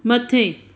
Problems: constant background noise, echo